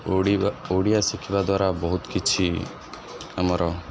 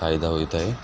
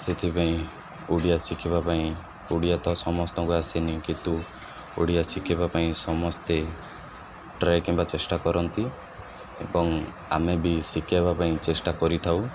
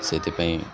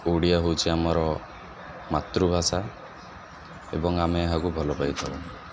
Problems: none marked